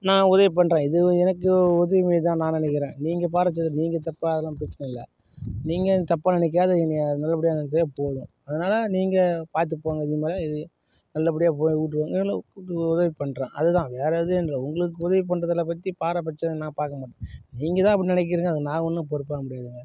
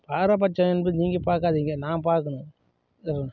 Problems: none marked